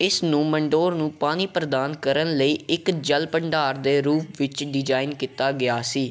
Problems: background sounds at intervals